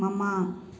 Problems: none marked